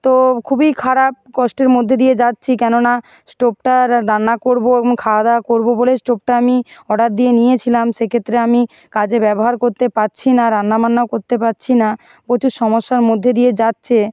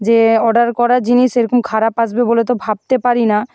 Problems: constant background noise